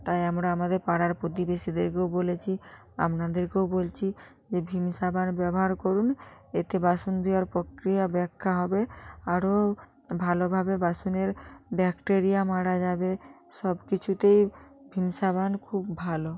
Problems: background conversations at intervals